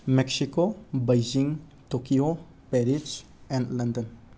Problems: constant background noise